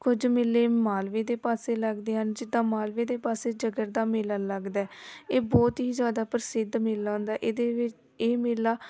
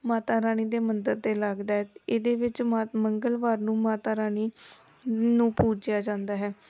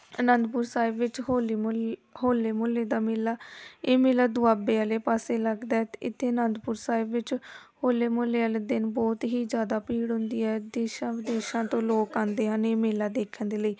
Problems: background sounds at intervals, background conversations at intervals